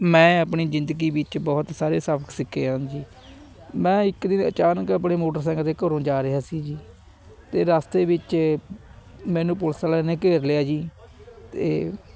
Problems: constant background noise, background conversations at intervals